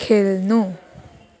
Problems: none marked